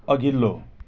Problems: none marked